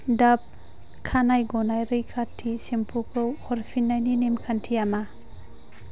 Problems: constant background noise